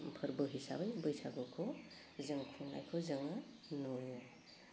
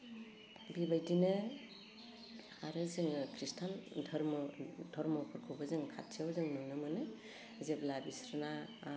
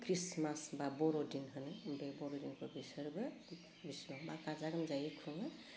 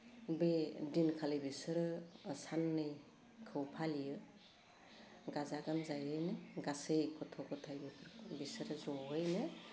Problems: low volume